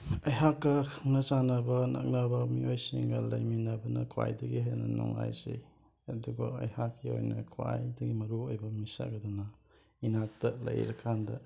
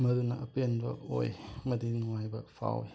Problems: background sounds at intervals